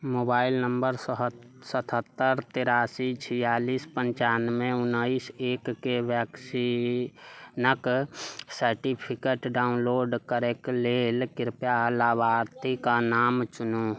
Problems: none marked